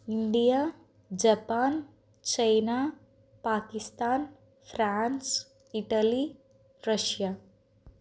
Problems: constant background noise